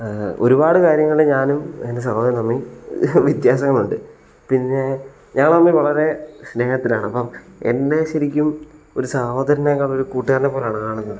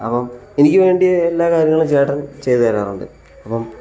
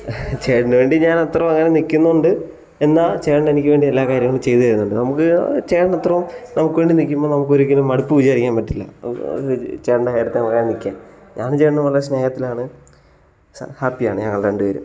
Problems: none marked